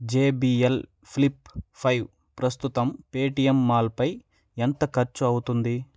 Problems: none marked